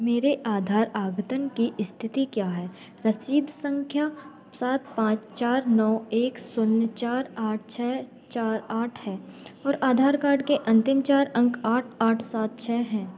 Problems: background conversations at intervals